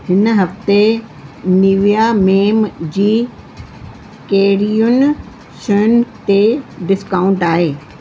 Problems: constant background noise